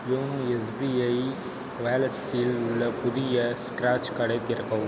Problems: background sounds at intervals, low volume